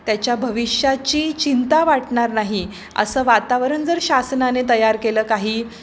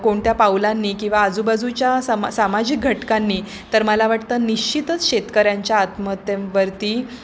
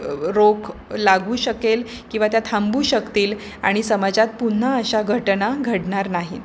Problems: constant background noise, background conversations at intervals